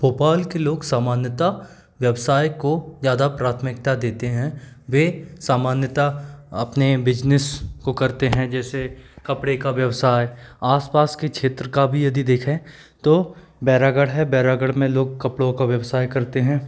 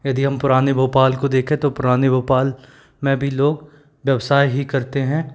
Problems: none marked